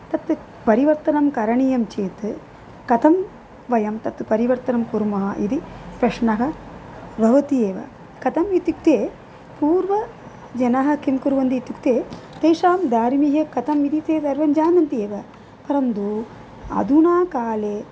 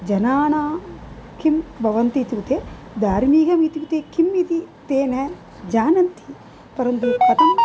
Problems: constant background noise